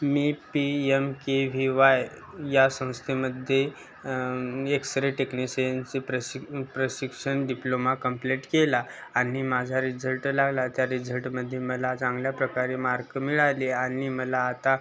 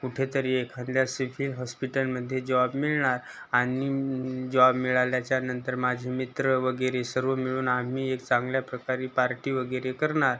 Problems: constant background noise